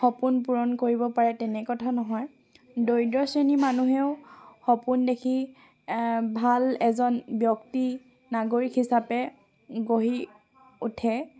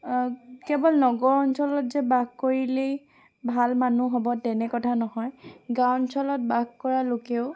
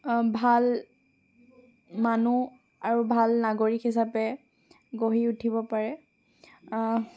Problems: background sounds at intervals, continuous background conversations